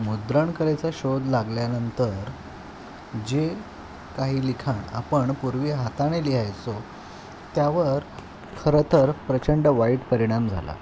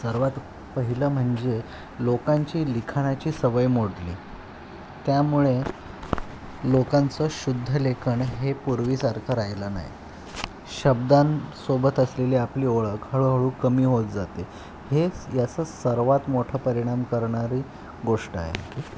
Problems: constant background noise